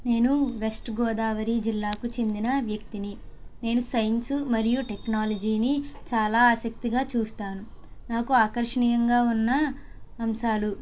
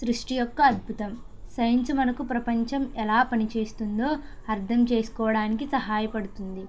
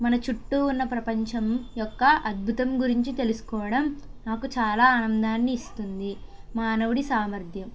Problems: none marked